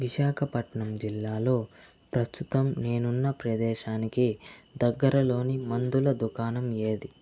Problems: constant background noise